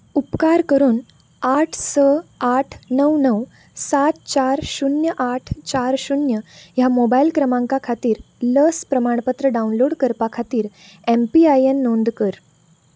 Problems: background sounds at intervals